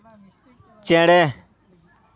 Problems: background conversations at intervals